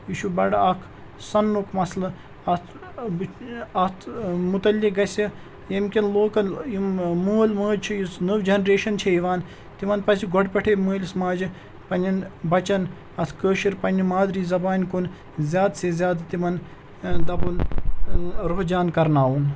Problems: none marked